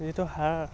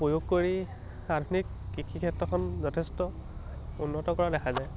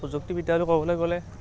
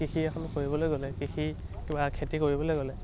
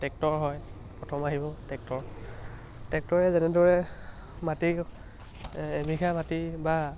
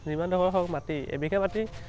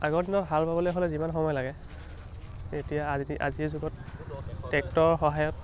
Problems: none marked